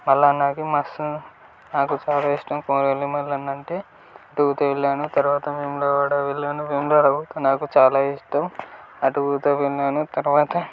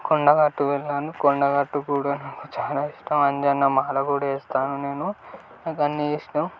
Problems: constant background noise